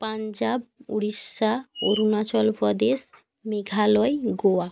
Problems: background sounds at intervals